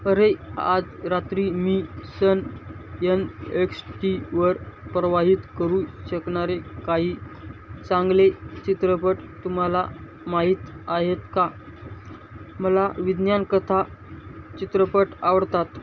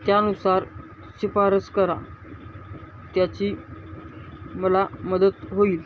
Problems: constant background noise